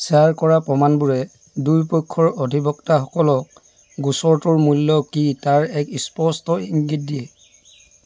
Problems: constant background noise